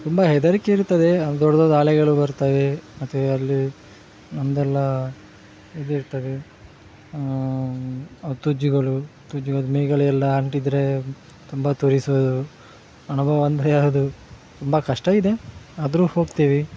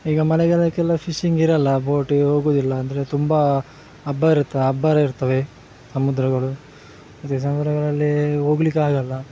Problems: background sounds at intervals